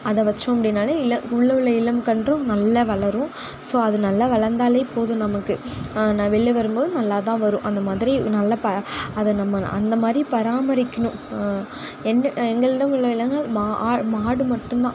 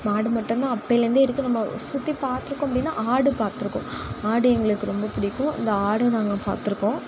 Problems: none marked